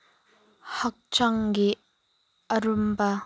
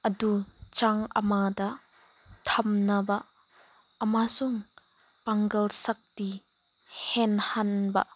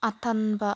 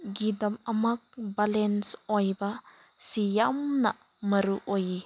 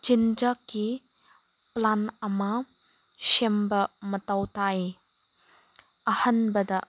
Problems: background sounds at intervals